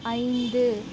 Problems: constant background noise